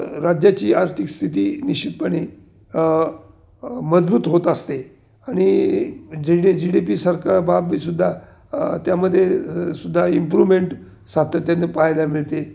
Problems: none marked